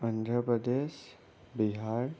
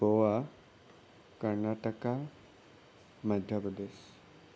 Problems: constant background noise